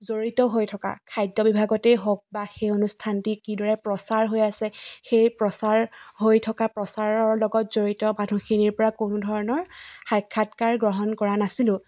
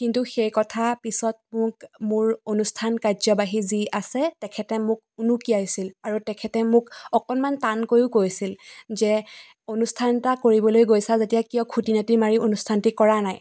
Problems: none marked